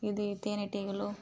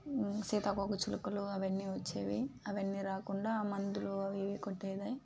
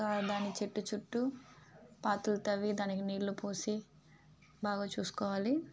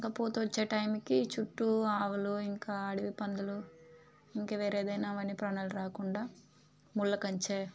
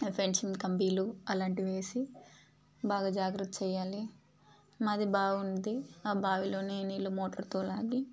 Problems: constant background noise, background conversations at intervals